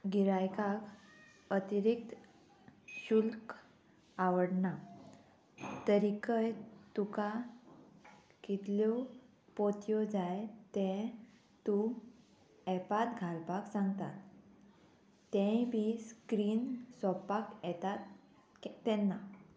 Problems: constant background noise